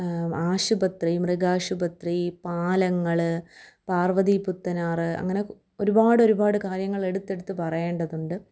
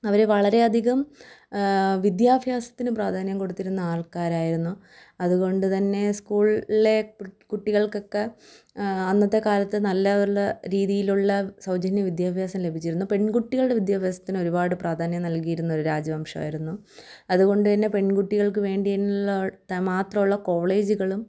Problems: none marked